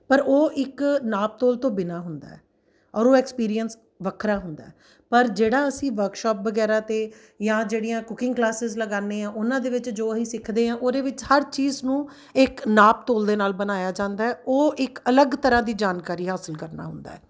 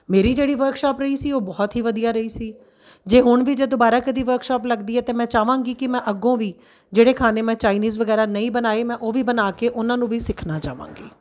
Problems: none marked